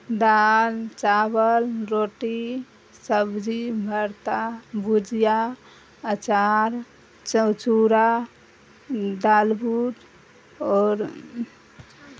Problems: constant background noise